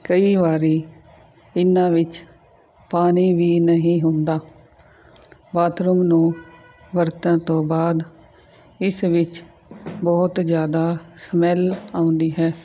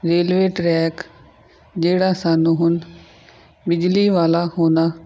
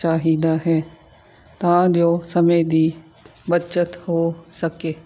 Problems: none marked